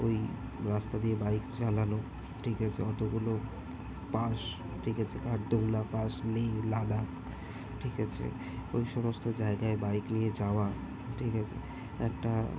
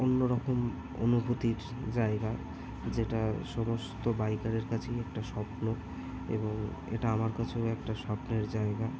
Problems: constant background noise